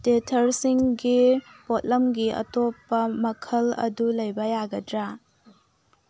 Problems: low volume